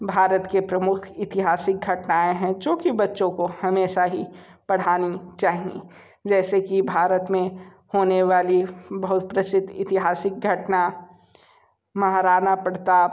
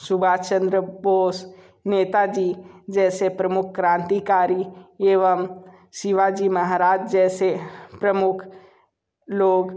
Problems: background sounds at intervals